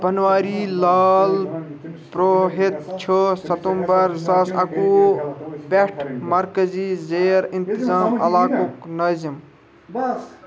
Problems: continuous background conversations